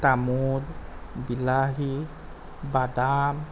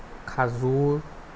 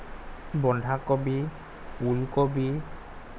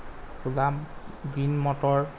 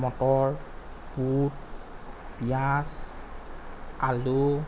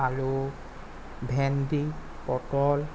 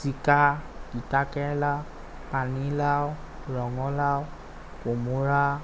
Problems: constant background noise